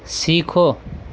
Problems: constant background noise